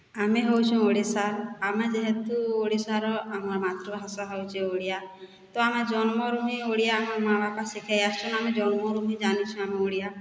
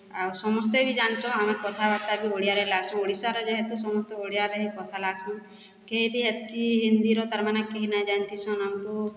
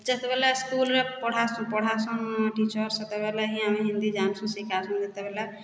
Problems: background sounds at intervals